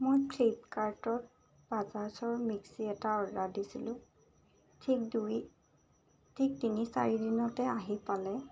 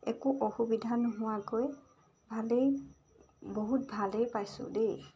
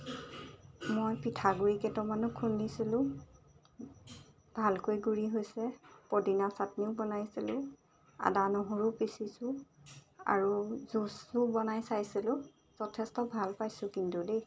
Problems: none marked